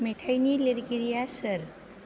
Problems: low volume